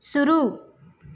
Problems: none marked